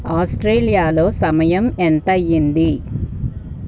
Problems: background sounds at intervals